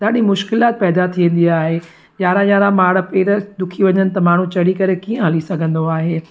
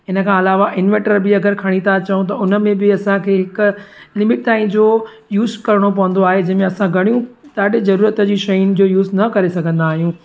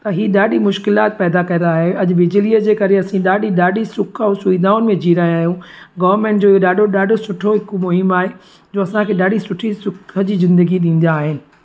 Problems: constant background noise